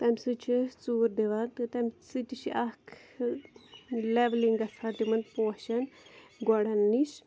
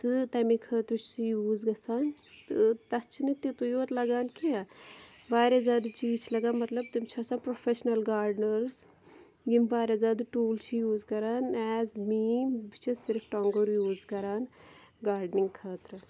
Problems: constant background noise